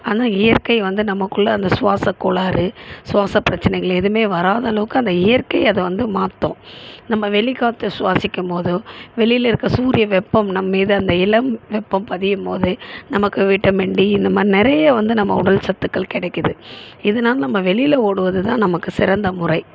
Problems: constant background noise